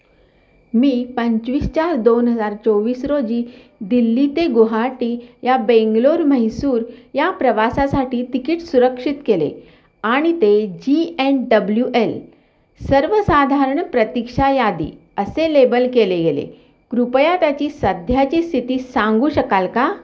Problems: none marked